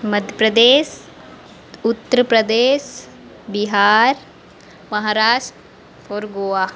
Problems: constant background noise